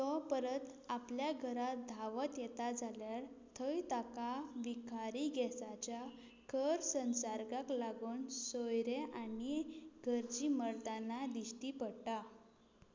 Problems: background sounds at intervals, low volume